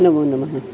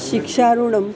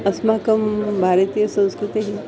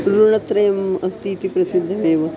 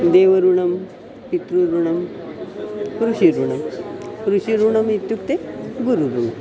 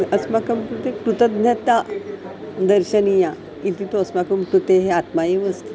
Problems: constant background noise, continuous background conversations